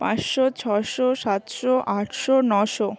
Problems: constant background noise